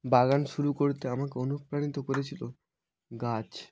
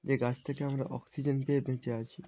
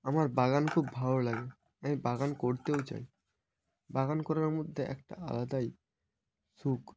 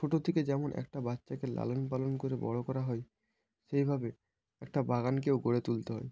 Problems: constant background noise